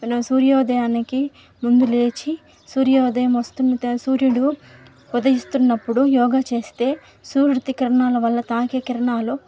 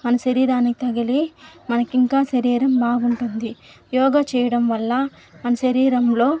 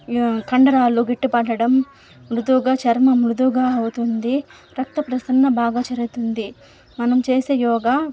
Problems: constant background noise